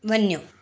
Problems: none marked